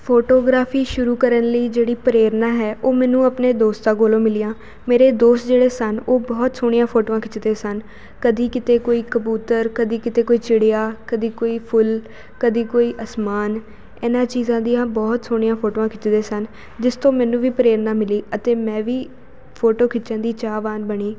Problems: constant background noise